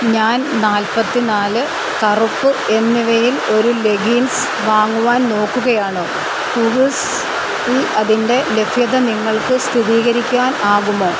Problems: constant background noise